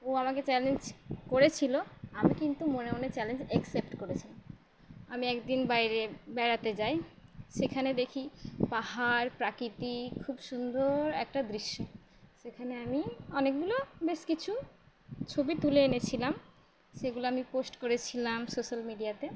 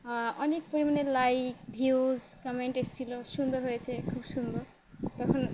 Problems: none marked